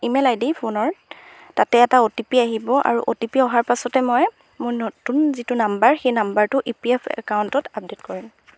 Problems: background sounds at intervals